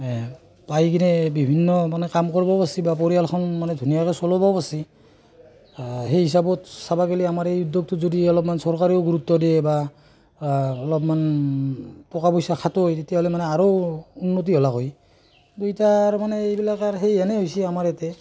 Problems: constant background noise, background conversations at intervals